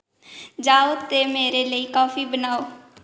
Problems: echo